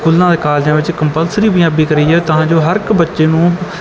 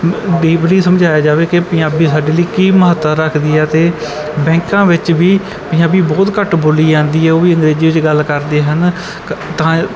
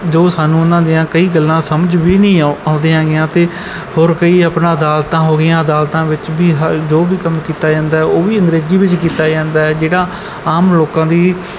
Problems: constant background noise